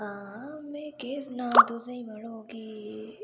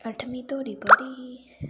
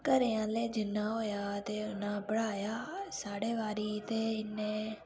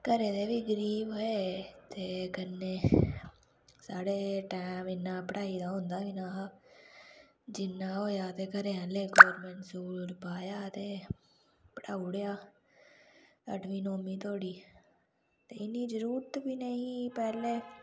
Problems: low volume